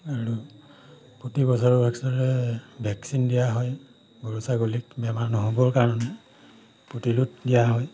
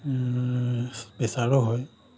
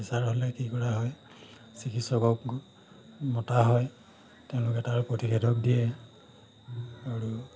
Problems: background sounds at intervals